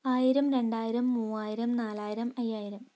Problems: low volume